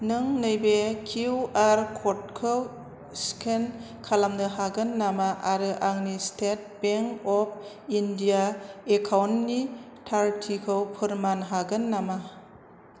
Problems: constant background noise